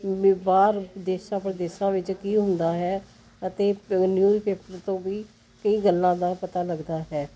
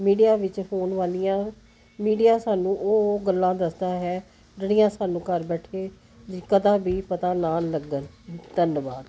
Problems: none marked